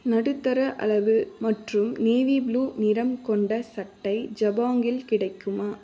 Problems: constant background noise